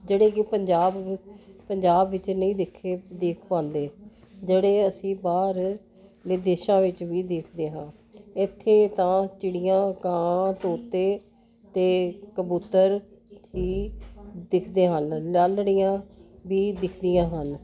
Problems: constant background noise